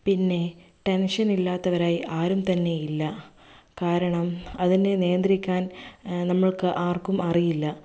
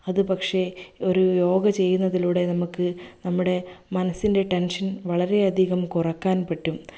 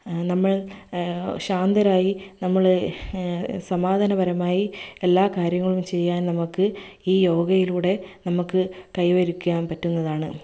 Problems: none marked